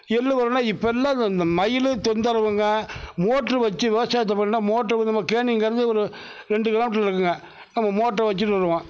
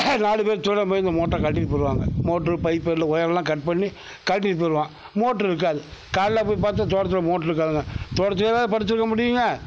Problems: none marked